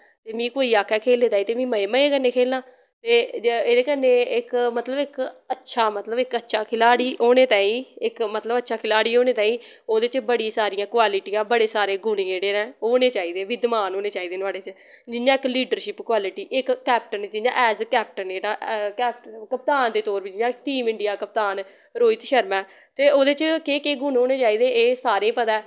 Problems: none marked